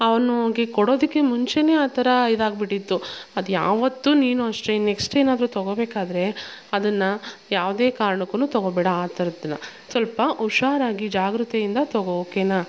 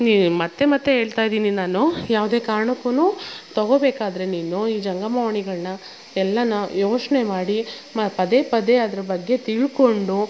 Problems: background sounds at intervals